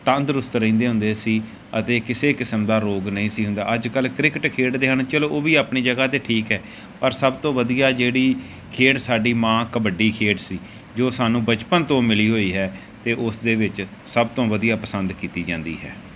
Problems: background sounds at intervals